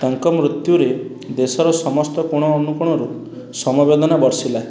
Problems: background sounds at intervals